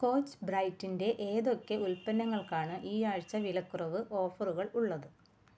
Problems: background sounds at intervals